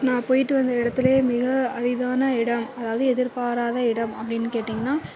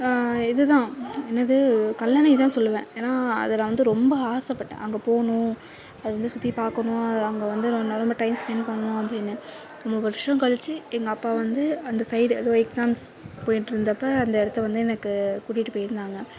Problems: constant background noise, low volume